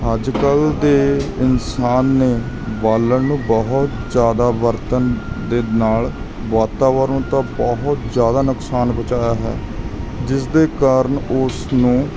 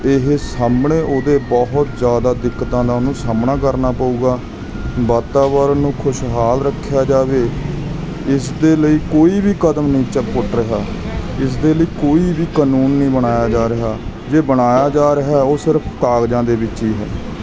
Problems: background sounds at intervals